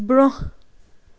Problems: constant background noise